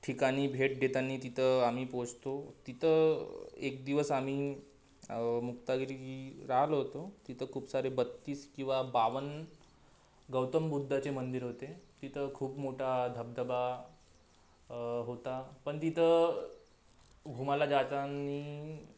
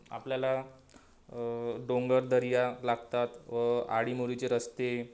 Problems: constant background noise